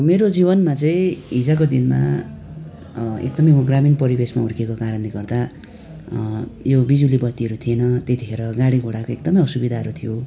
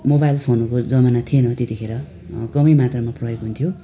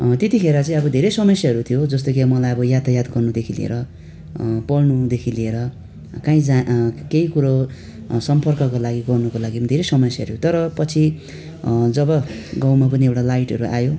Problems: constant background noise